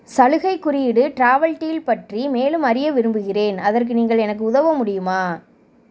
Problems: none marked